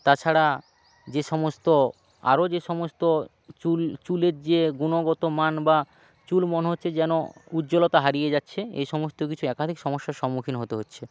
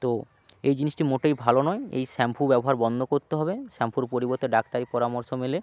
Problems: background sounds at intervals, background conversations at intervals